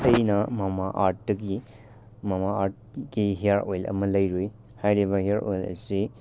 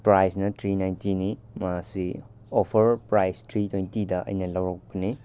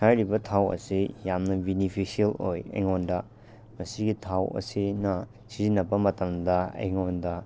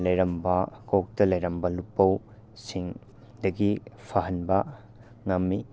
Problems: none marked